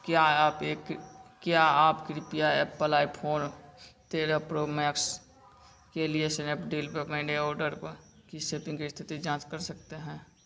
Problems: none marked